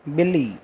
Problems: constant background noise